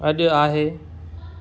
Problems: none marked